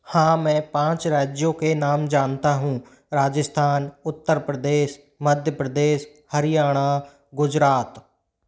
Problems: none marked